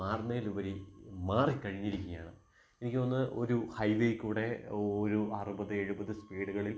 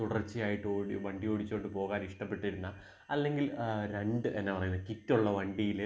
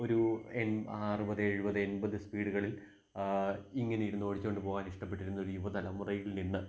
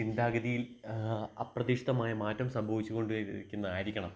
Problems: background sounds at intervals